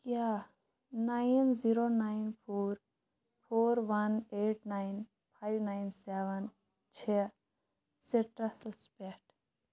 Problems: constant background noise